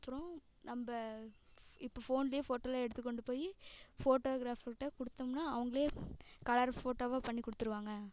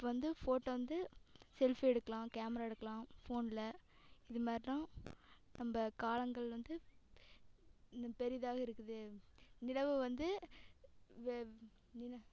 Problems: background sounds at intervals, echo